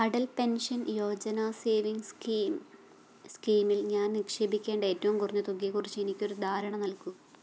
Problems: low volume